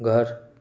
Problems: none marked